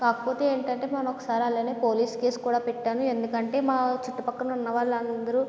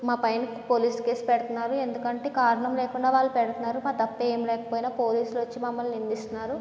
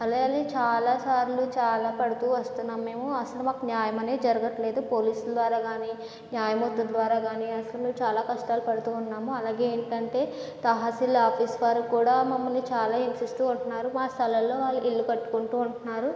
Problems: none marked